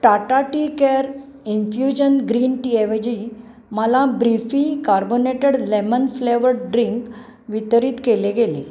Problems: background sounds at intervals